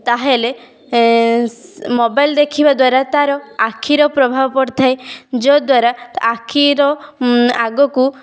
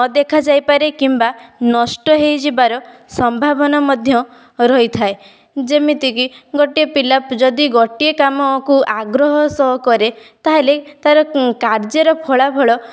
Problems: none marked